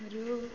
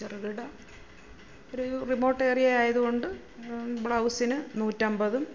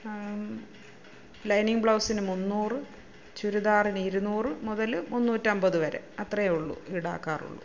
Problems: none marked